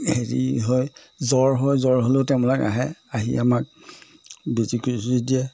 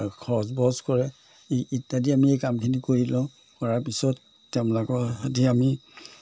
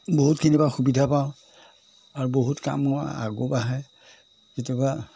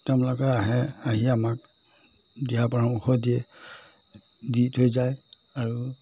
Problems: none marked